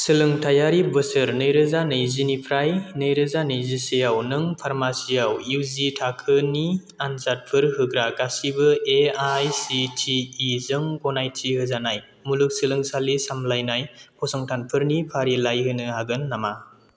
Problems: none marked